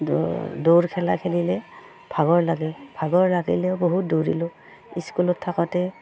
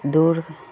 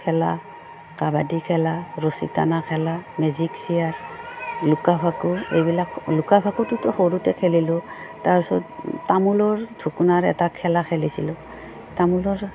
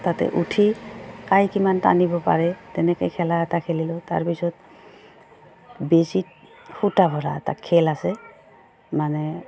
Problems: low volume